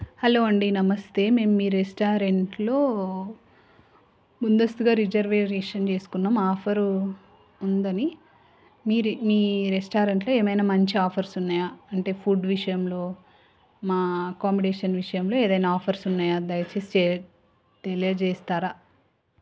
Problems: none marked